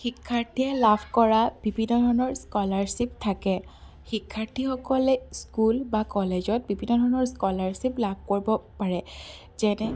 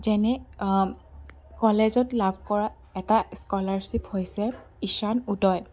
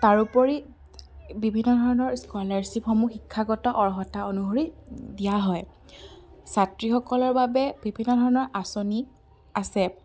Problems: background sounds at intervals